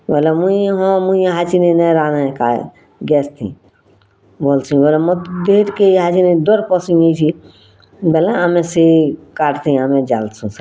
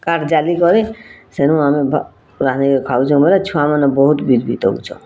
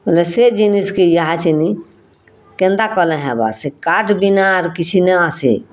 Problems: constant background noise